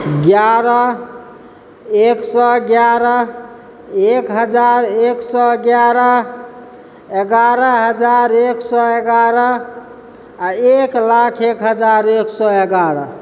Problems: background sounds at intervals